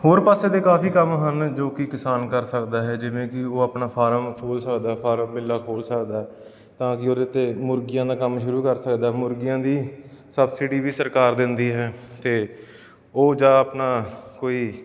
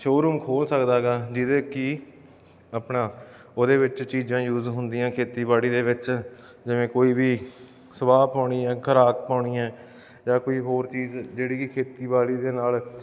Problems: none marked